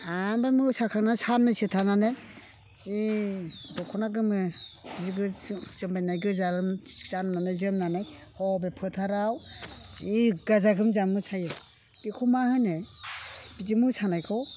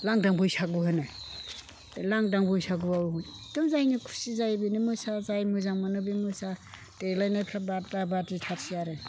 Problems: none marked